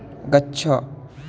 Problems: constant background noise